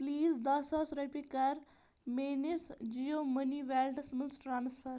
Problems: constant background noise